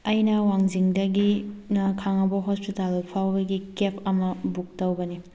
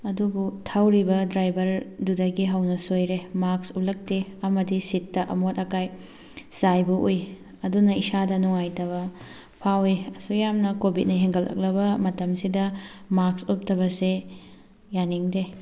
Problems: background sounds at intervals